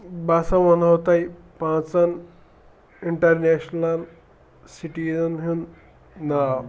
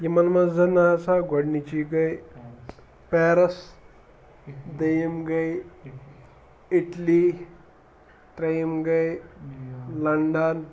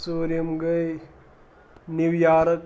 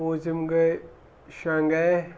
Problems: none marked